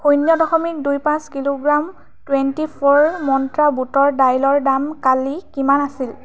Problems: background sounds at intervals